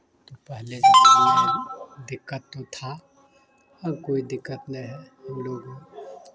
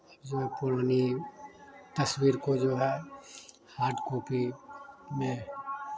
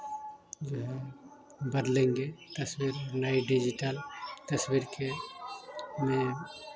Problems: constant background noise